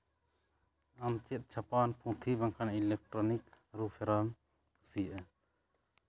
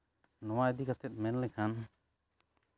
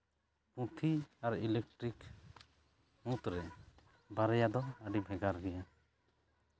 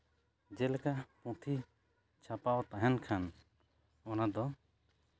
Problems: none marked